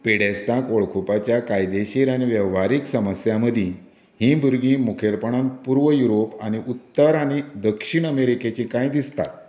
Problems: none marked